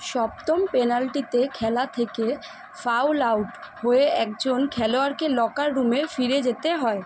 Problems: none marked